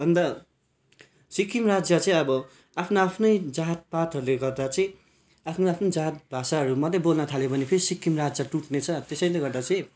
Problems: background sounds at intervals